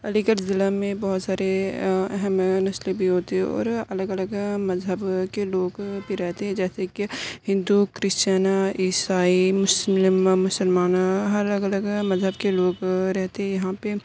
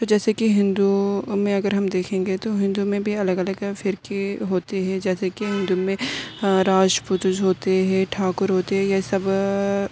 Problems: background sounds at intervals